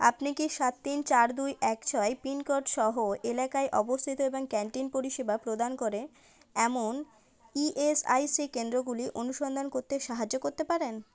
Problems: none marked